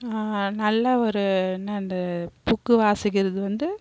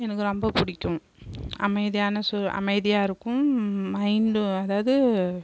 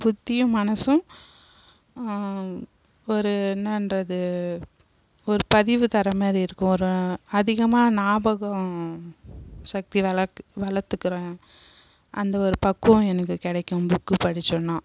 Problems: constant background noise